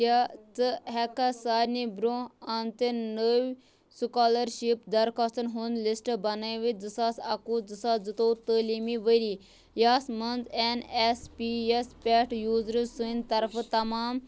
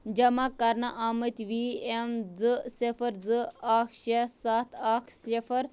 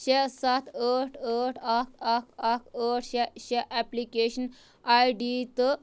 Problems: background conversations at intervals